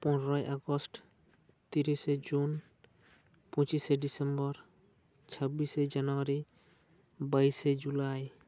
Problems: none marked